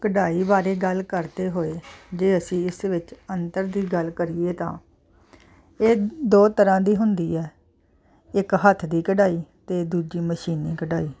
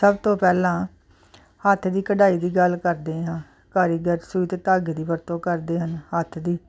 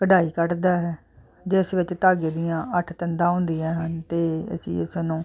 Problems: constant background noise